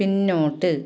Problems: none marked